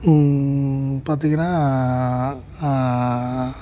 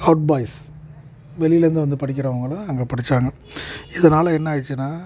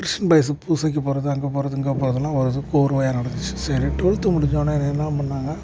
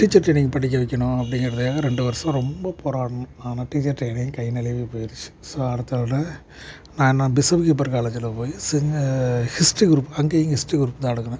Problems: background sounds at intervals, background conversations at intervals